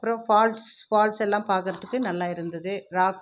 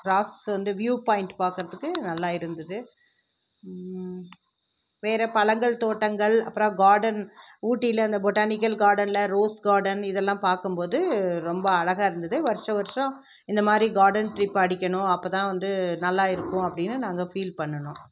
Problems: background sounds at intervals